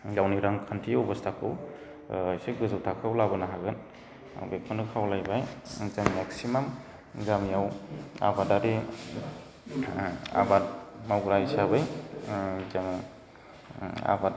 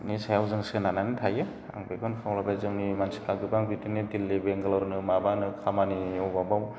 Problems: constant background noise